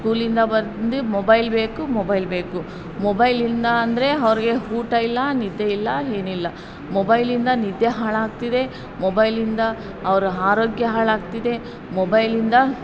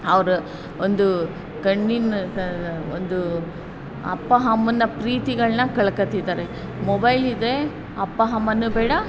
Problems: background sounds at intervals